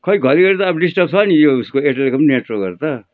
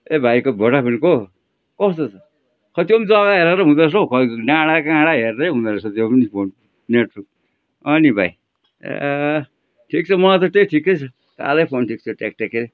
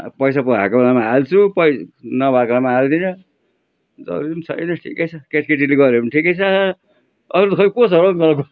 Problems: background sounds at intervals